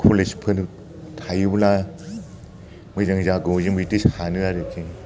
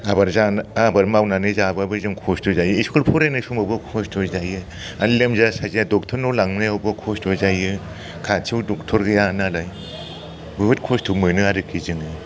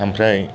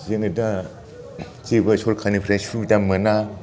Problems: none marked